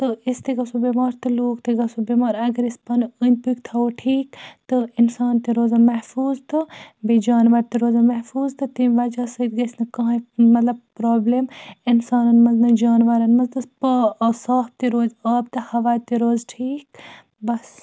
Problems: none marked